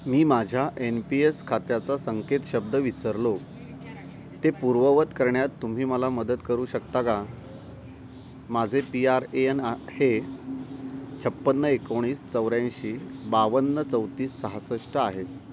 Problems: none marked